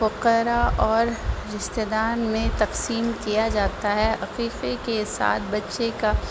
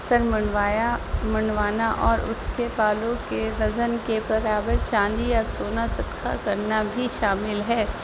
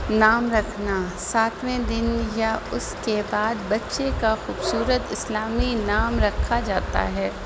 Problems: constant background noise